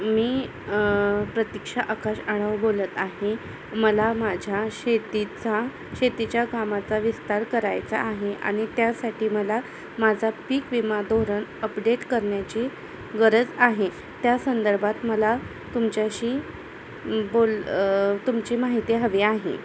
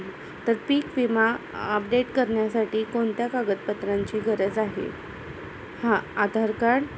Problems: constant background noise, background conversations at intervals